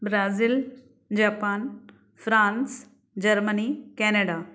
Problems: none marked